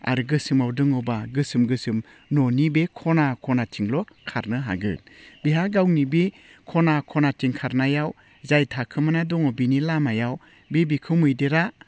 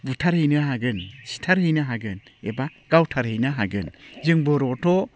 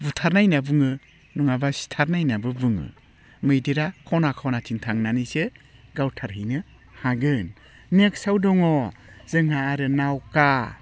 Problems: none marked